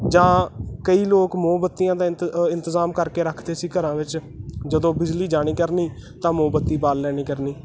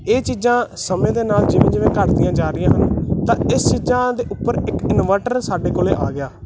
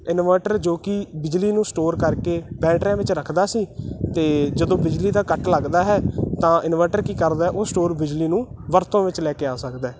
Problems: constant background noise